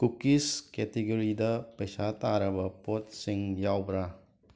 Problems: background sounds at intervals